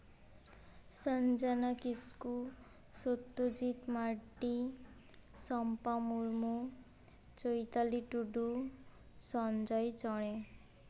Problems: none marked